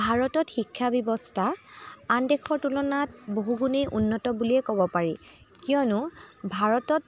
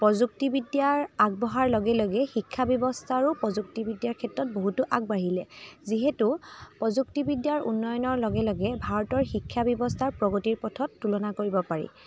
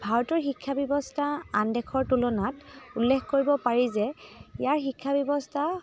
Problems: none marked